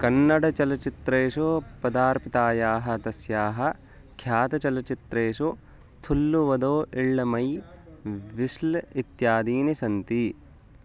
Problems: constant background noise